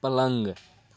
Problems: none marked